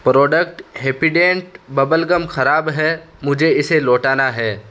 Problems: constant background noise